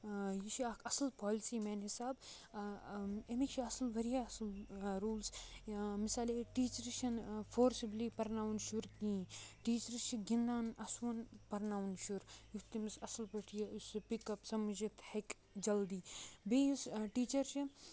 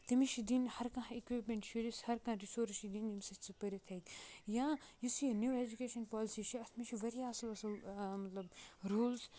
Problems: none marked